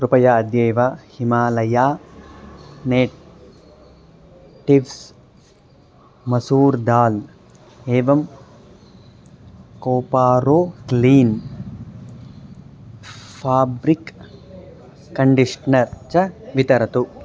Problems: continuous background conversations